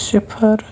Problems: none marked